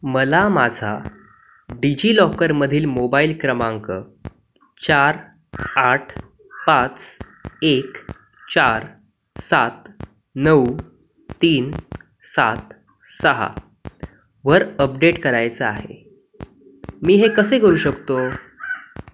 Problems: none marked